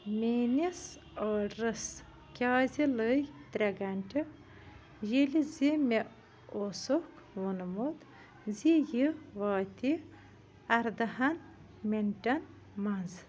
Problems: none marked